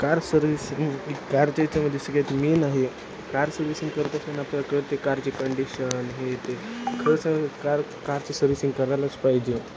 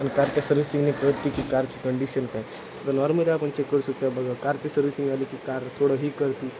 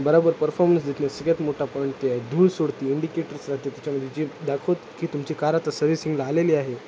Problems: constant background noise